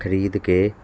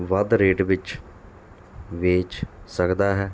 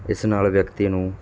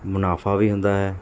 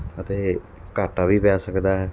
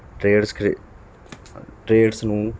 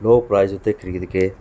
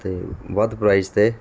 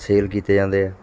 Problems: constant background noise